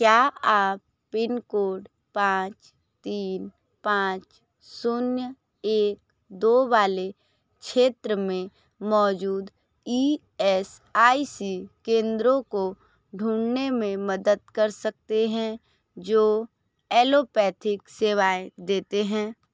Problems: none marked